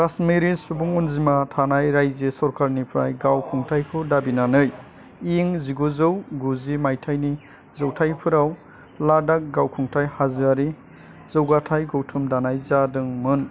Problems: low volume